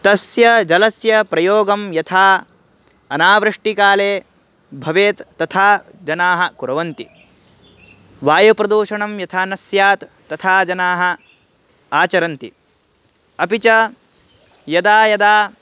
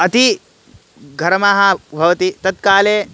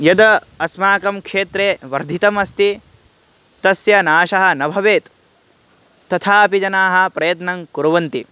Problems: background sounds at intervals